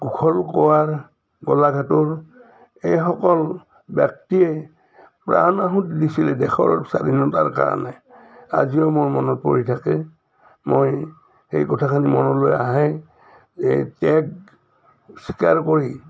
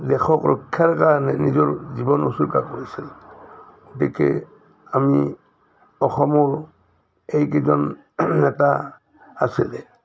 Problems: none marked